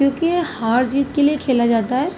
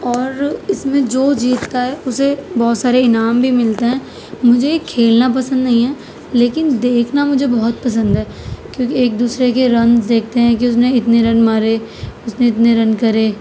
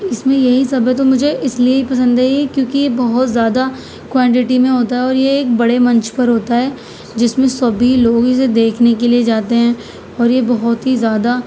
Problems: none marked